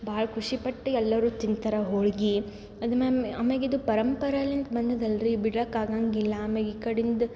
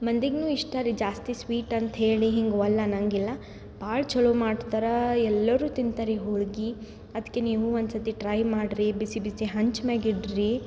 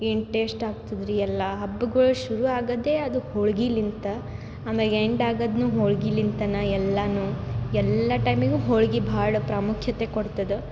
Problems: none marked